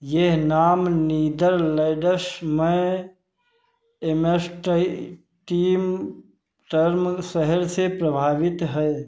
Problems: none marked